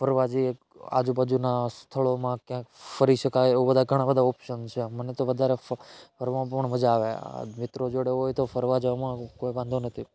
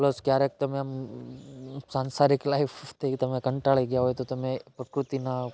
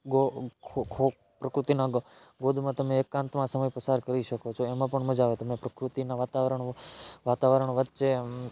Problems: none marked